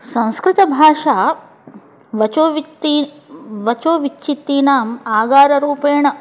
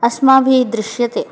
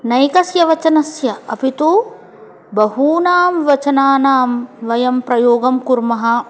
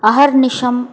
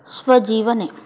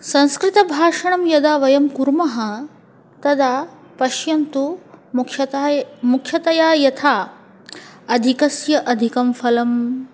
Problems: background conversations at intervals